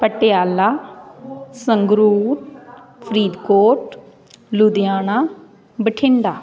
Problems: continuous background conversations